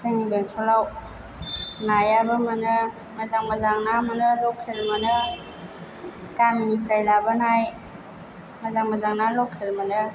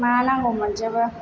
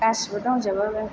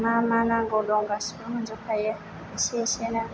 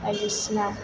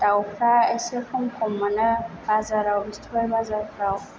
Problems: background sounds at intervals